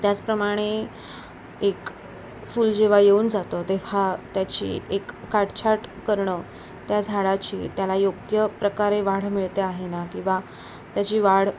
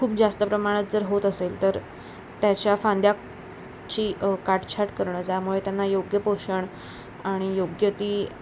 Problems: none marked